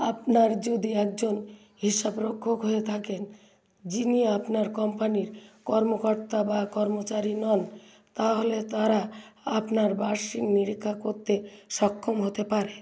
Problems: background sounds at intervals